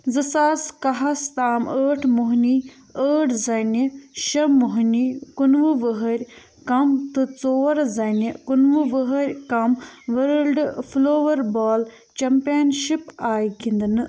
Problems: none marked